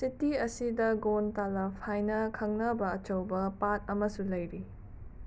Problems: constant background noise